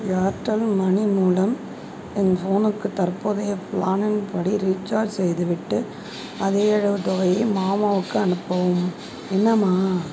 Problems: background conversations at intervals